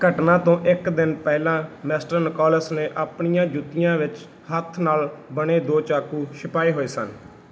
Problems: none marked